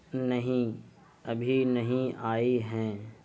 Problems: constant background noise